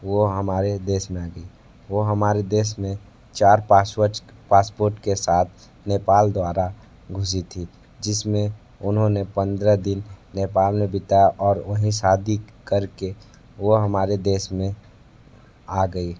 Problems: constant background noise